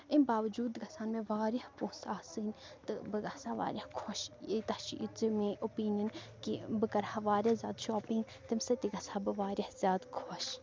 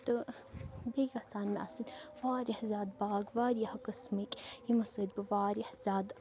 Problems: low volume